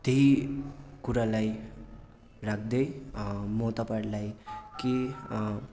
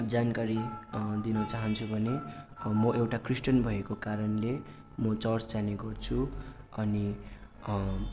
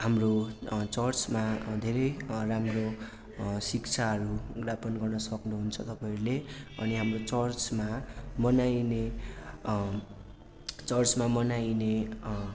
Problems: none marked